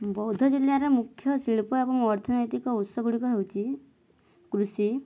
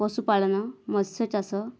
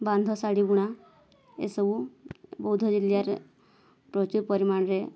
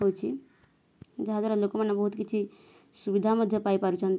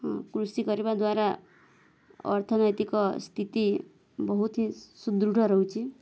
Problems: background sounds at intervals